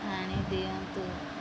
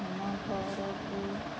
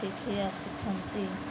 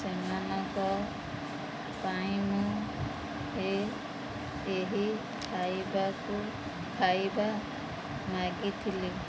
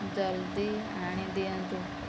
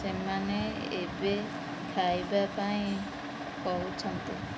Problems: none marked